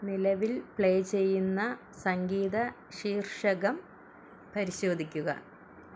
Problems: none marked